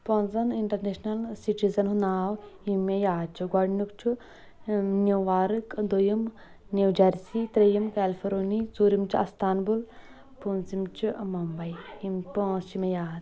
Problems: continuous background conversations